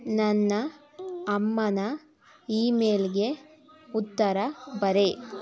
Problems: background conversations at intervals